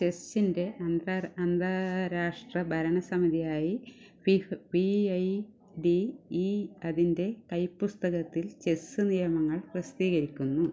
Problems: low volume